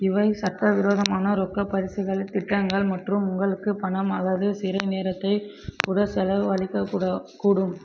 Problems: constant background noise